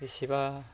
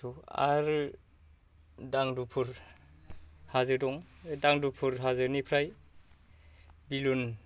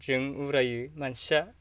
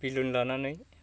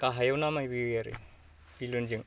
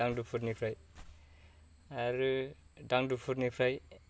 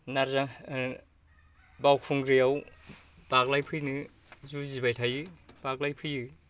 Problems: low volume